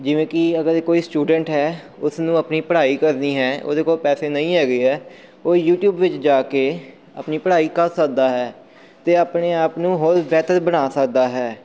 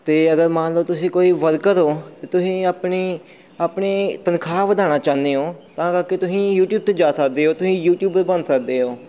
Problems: background sounds at intervals